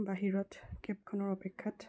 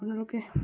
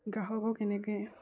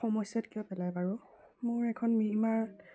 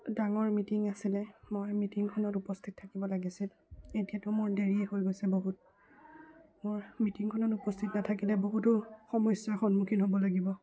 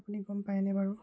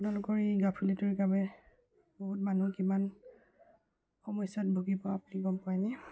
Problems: low volume